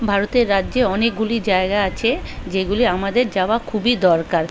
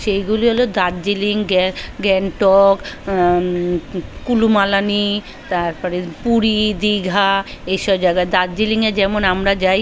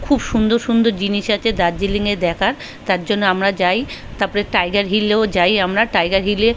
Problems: constant background noise, continuous background conversations